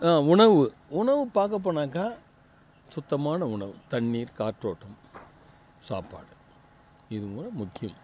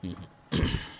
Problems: constant background noise, low volume